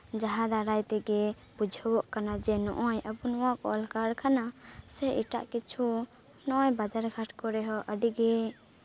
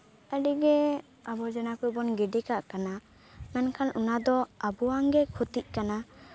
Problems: constant background noise, background conversations at intervals